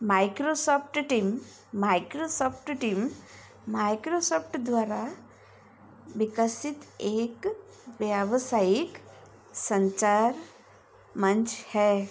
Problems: constant background noise